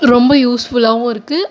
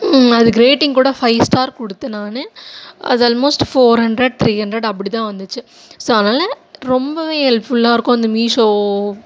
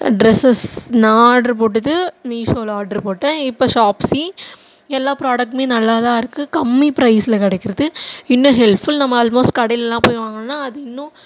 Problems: none marked